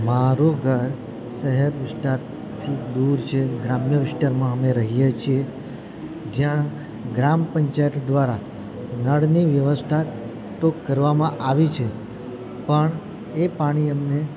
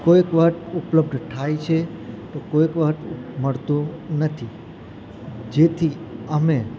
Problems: constant background noise